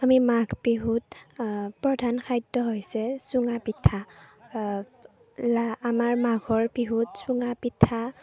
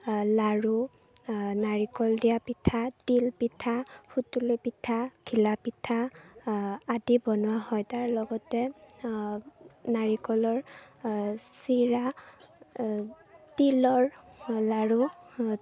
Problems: background sounds at intervals, low volume